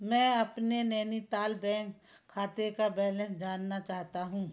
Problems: constant background noise